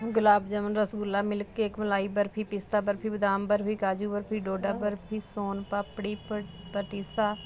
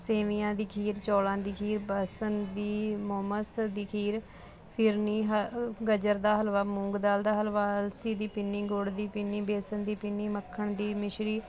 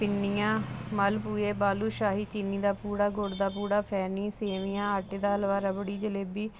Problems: constant background noise